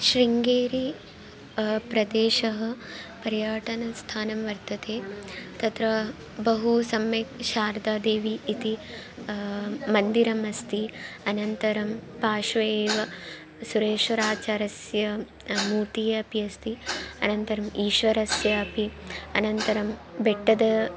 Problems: none marked